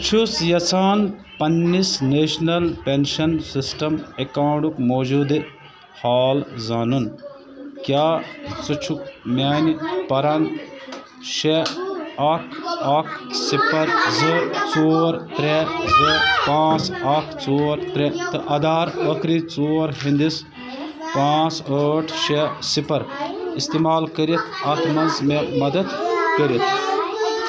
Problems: constant background noise, continuous background conversations